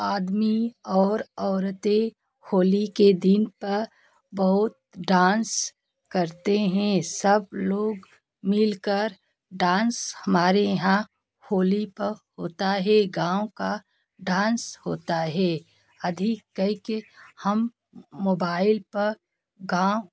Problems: none marked